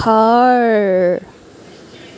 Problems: constant background noise, background conversations at intervals